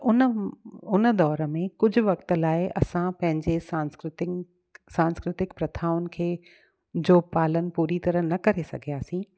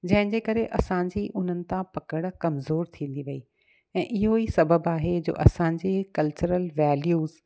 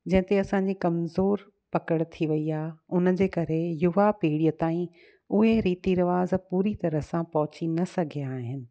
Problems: none marked